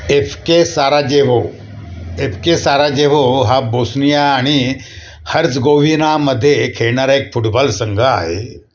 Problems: constant background noise, echo